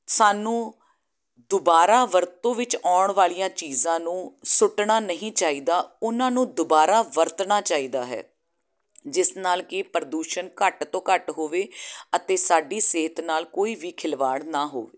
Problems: none marked